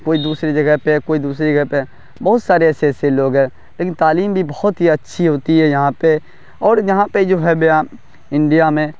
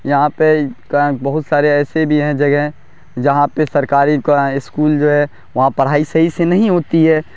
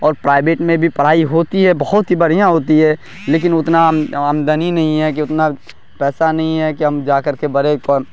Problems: none marked